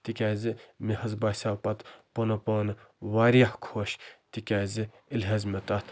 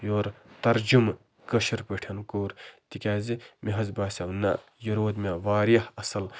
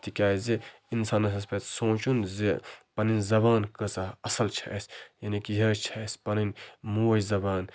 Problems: none marked